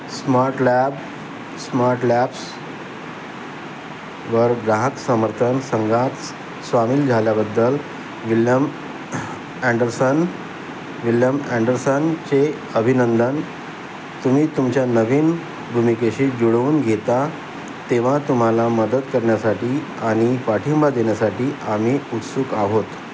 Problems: constant background noise